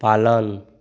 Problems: background sounds at intervals